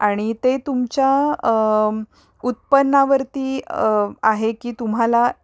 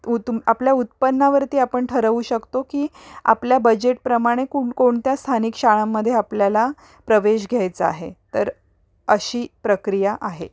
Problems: background sounds at intervals